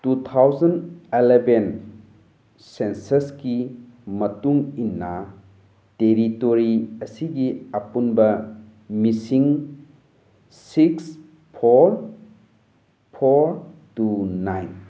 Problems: none marked